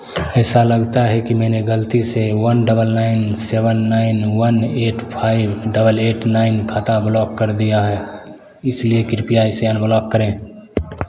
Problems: constant background noise